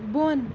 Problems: none marked